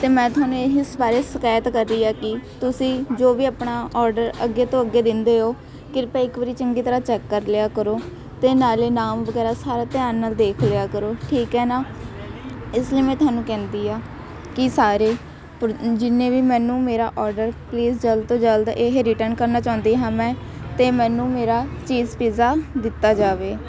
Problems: continuous background conversations